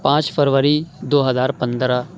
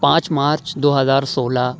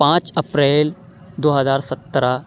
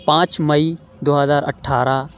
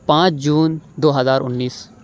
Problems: none marked